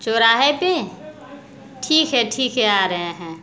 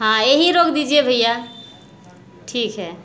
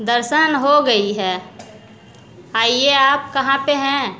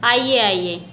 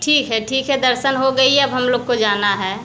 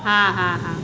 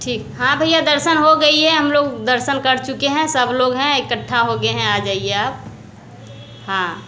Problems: none marked